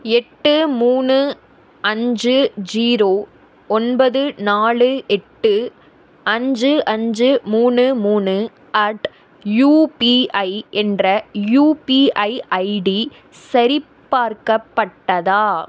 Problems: none marked